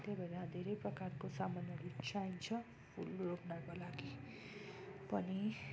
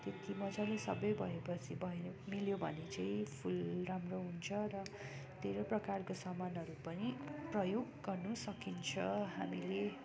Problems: none marked